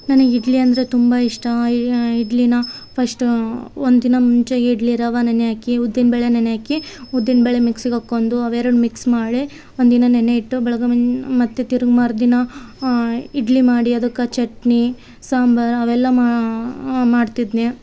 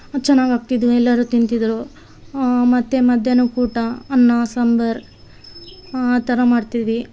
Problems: background sounds at intervals